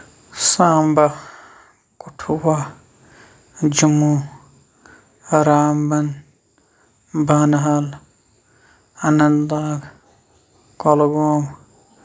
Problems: none marked